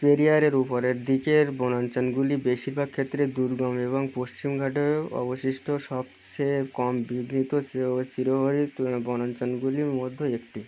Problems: none marked